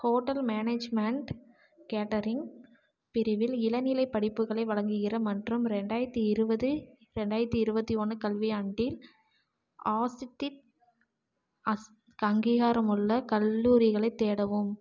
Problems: none marked